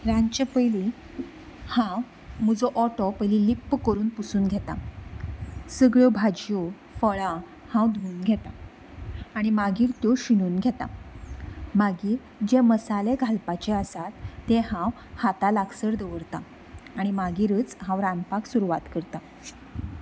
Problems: none marked